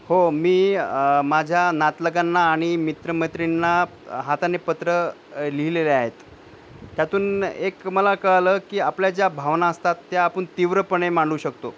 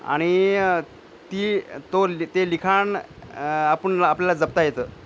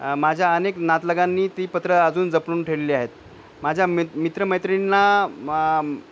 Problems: background sounds at intervals